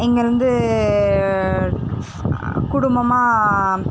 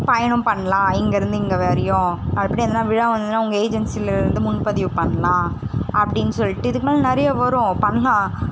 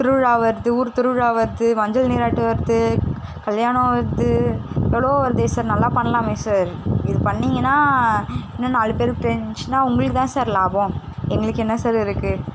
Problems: constant background noise